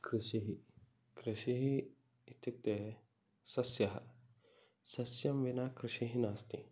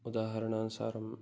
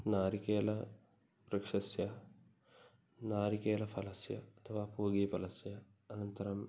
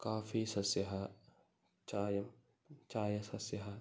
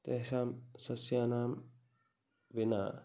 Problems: background sounds at intervals